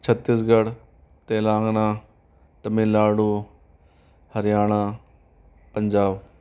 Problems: constant background noise